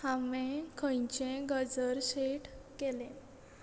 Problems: constant background noise